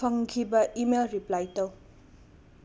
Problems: none marked